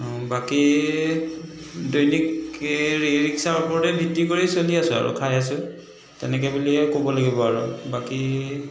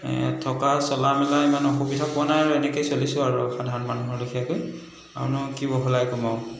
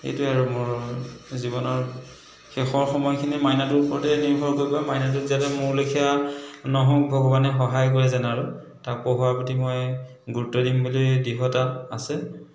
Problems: background sounds at intervals, background conversations at intervals